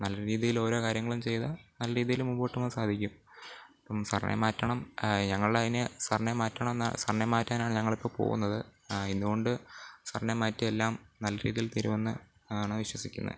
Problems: none marked